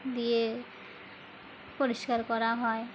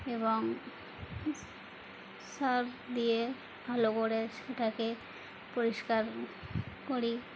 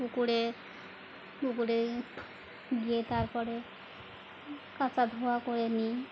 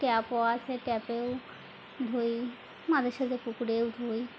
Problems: background sounds at intervals